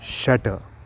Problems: constant background noise